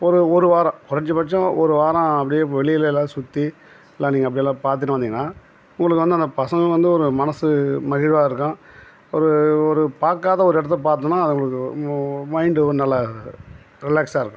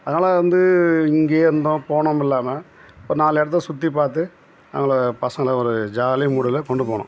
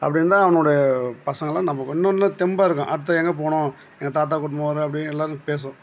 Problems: background sounds at intervals